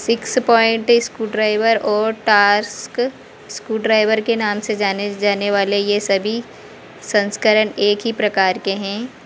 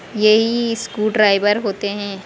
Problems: none marked